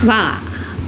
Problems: constant background noise, echo